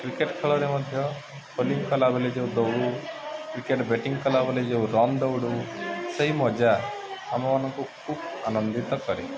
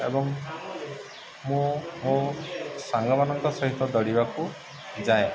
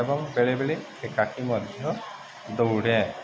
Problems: constant background noise, continuous background conversations